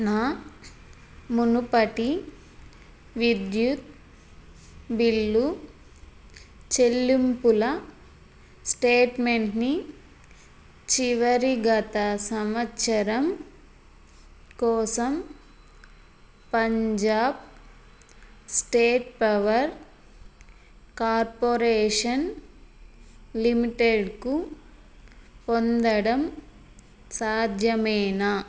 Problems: constant background noise